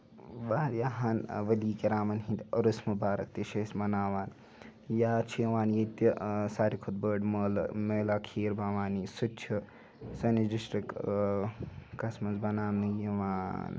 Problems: background sounds at intervals, background conversations at intervals